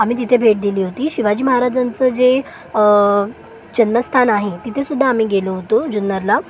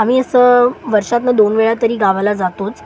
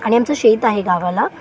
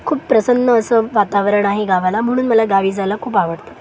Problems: constant background noise, continuous background conversations